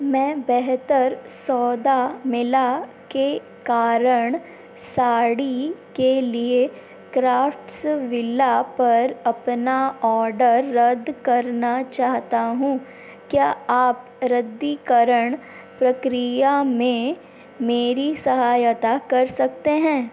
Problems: constant background noise